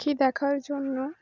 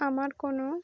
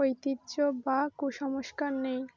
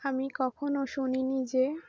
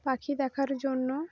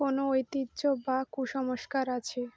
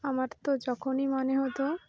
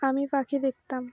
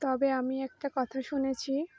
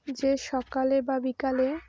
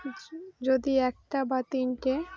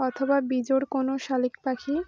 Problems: none marked